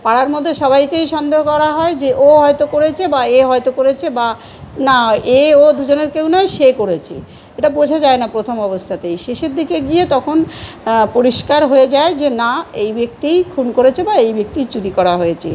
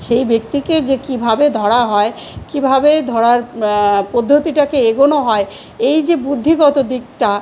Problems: constant background noise, continuous background conversations